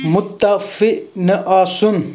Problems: background sounds at intervals